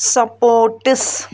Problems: background sounds at intervals